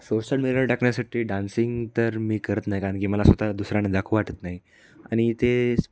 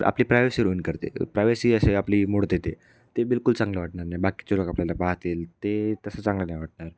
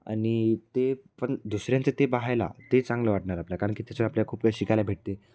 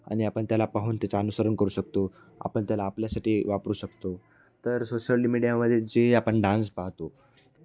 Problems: none marked